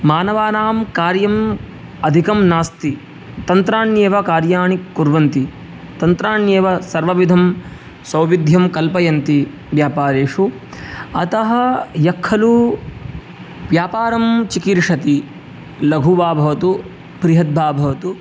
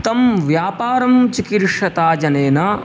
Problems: none marked